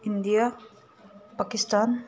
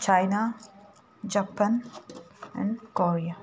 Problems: constant background noise